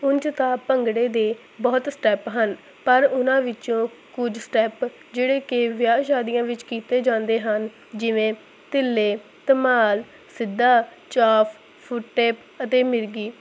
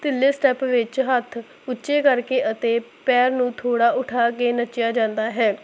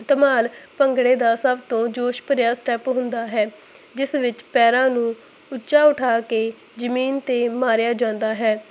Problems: constant background noise